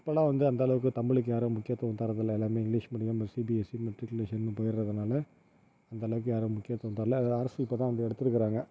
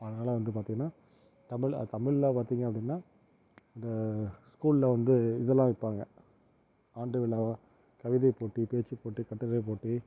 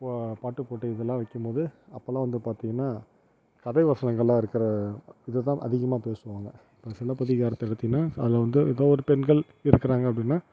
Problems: none marked